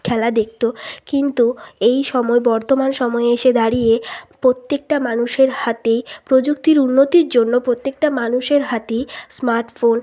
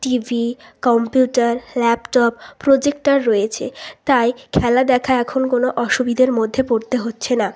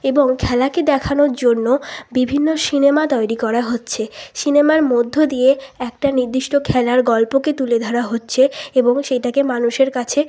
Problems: constant background noise, continuous background conversations